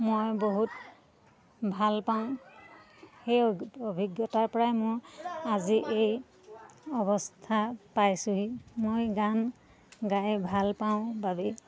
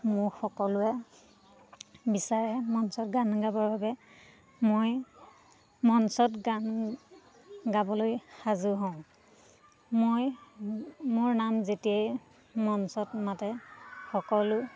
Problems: constant background noise, continuous background conversations